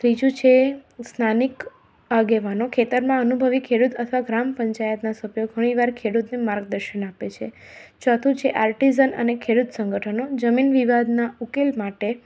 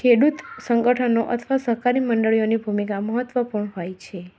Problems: constant background noise